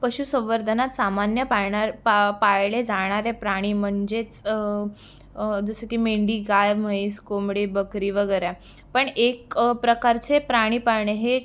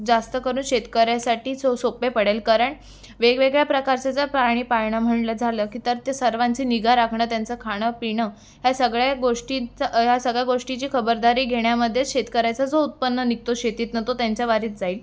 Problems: none marked